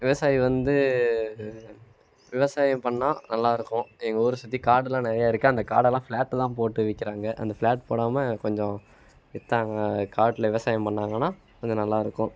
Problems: none marked